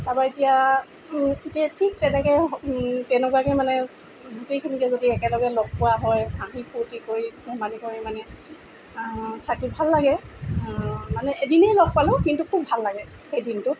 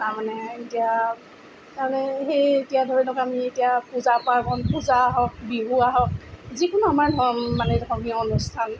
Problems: background sounds at intervals